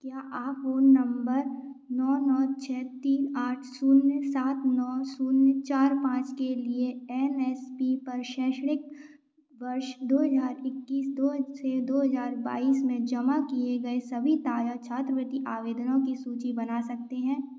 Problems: none marked